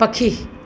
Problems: constant background noise